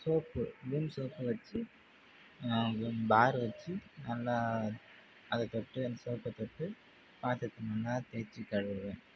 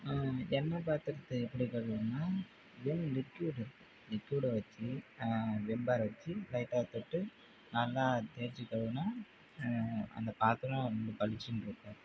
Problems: constant background noise